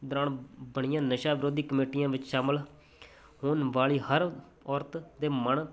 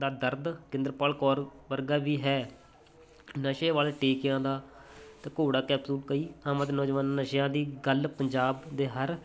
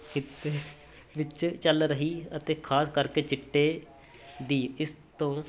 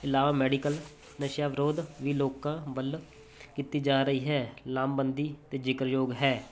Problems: constant background noise